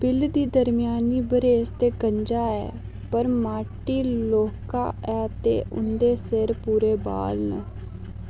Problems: low volume